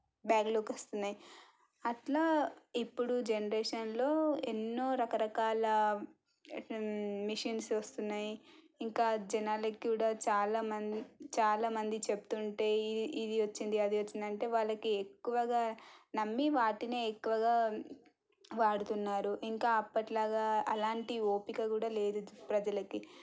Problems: none marked